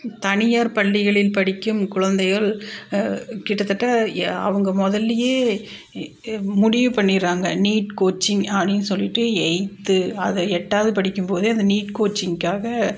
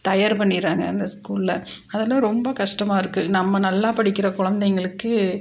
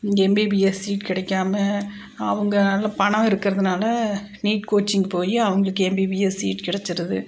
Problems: none marked